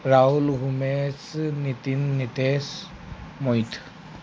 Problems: constant background noise